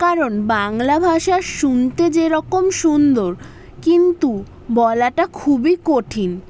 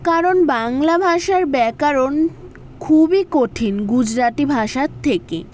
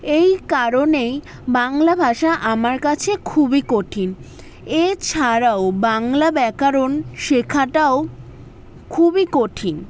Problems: none marked